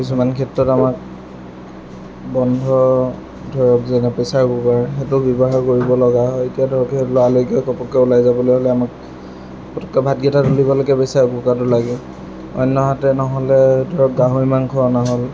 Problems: none marked